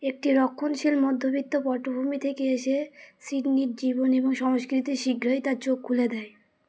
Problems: constant background noise